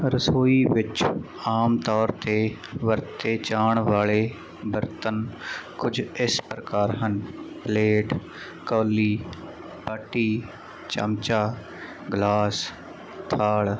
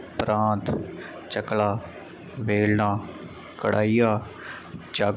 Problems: none marked